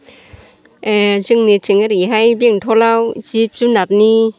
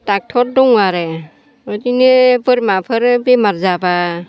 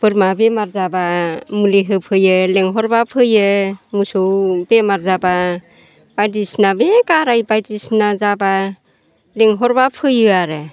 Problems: constant background noise